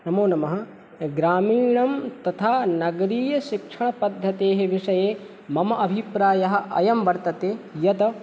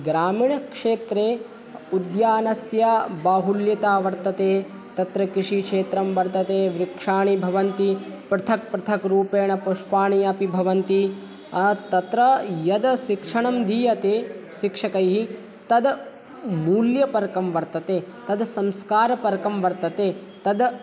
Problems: background sounds at intervals